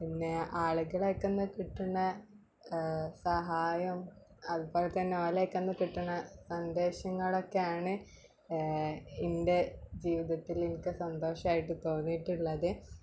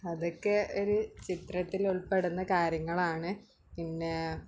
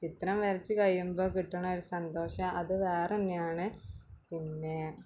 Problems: background sounds at intervals